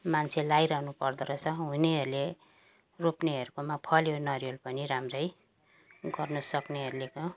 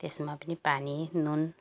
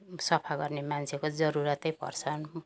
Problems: background sounds at intervals